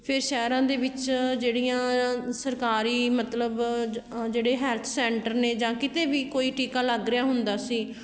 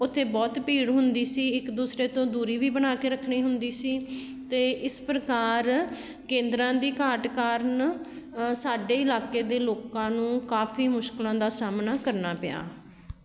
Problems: background sounds at intervals